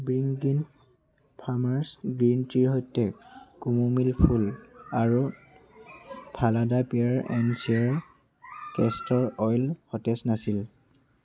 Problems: constant background noise